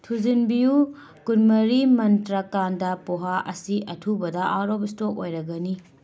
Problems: background conversations at intervals